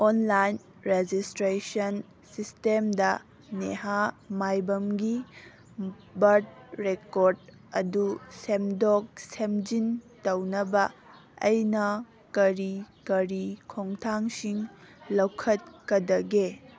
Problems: background sounds at intervals